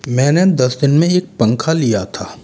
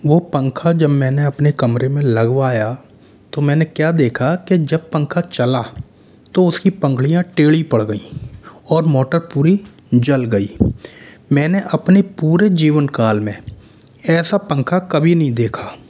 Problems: constant background noise, echo